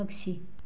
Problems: none marked